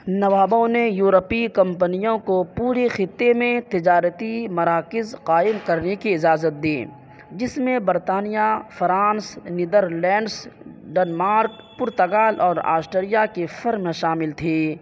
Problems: background sounds at intervals, low volume